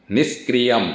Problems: none marked